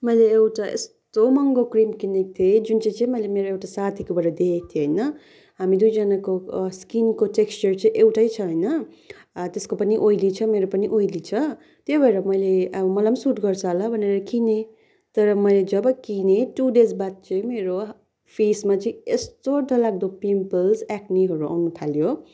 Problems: none marked